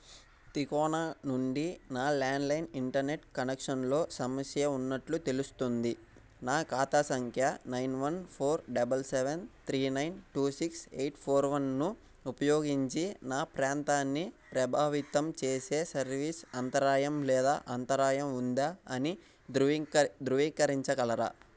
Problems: background sounds at intervals